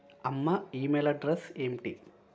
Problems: constant background noise, continuous background conversations